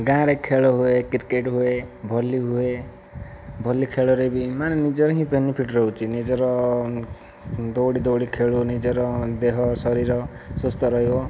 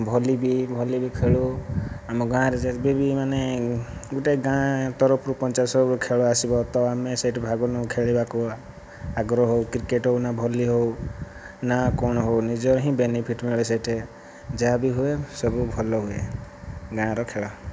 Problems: none marked